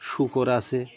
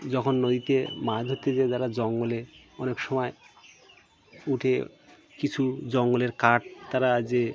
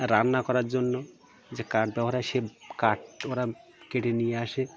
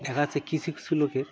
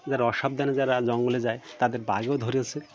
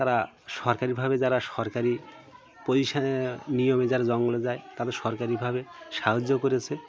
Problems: constant background noise, continuous background conversations